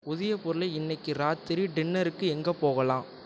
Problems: none marked